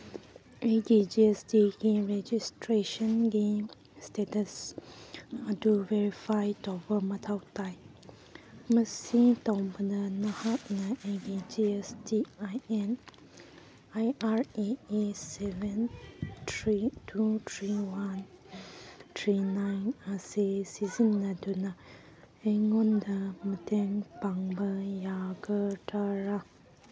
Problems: none marked